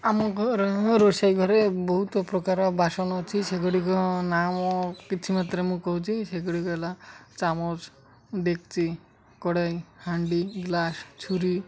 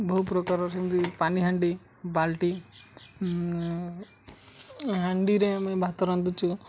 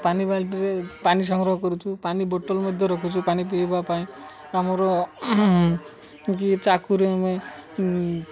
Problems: constant background noise, continuous background conversations